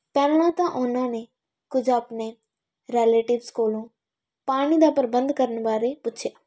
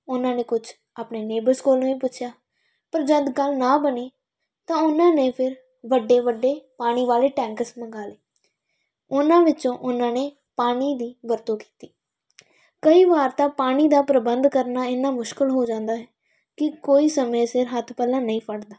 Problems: none marked